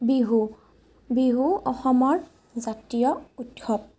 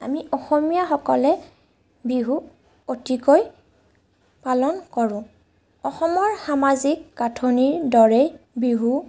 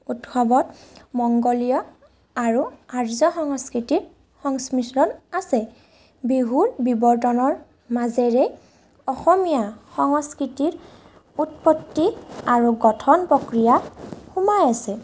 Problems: none marked